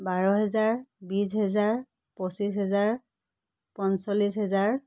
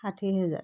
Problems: none marked